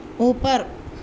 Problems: constant background noise